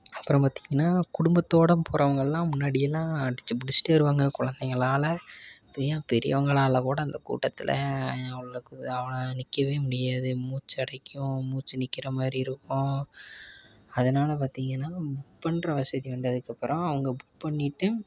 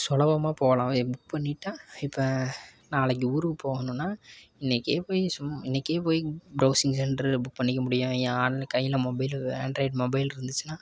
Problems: none marked